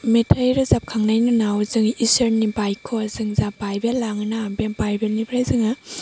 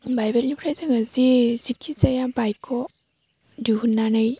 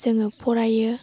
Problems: low volume